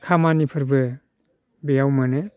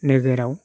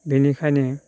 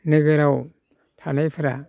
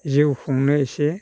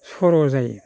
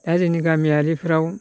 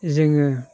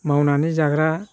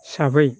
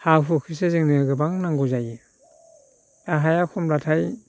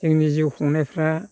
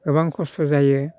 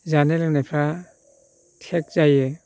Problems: none marked